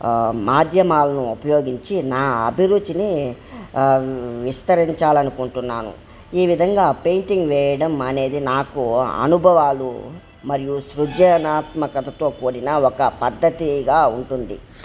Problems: none marked